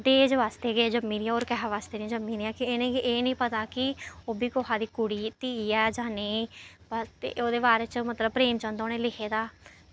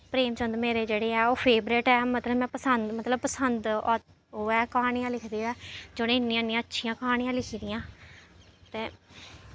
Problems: none marked